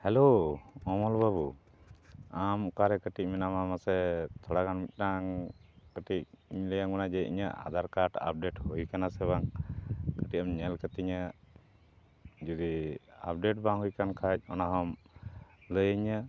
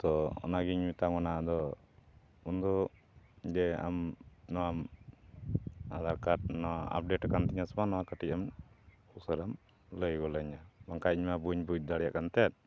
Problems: none marked